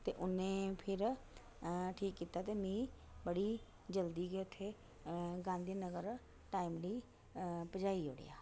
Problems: constant background noise, low volume